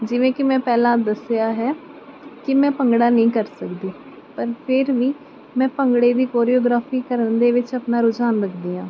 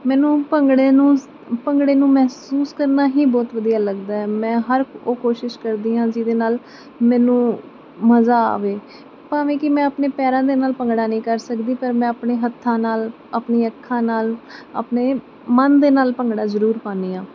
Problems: none marked